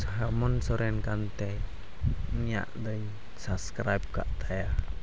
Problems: constant background noise